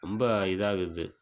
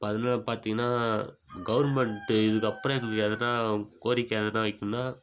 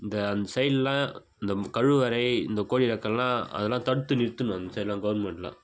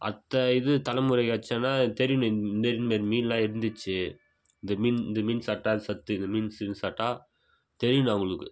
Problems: background sounds at intervals